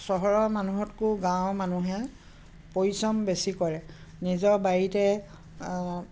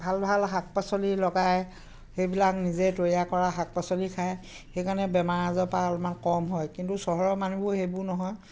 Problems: constant background noise, background conversations at intervals